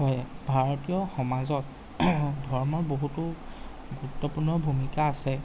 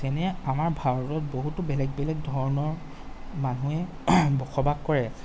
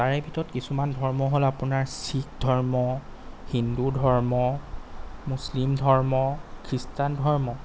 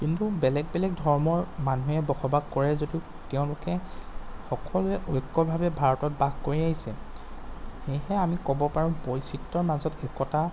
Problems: background sounds at intervals